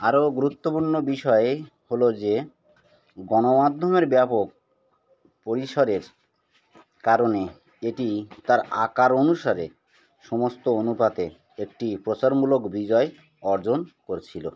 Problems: constant background noise